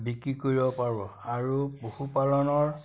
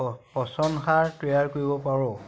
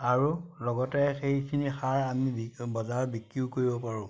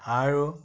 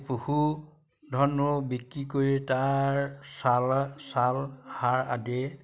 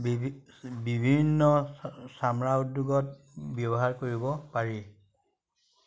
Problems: none marked